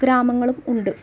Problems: background sounds at intervals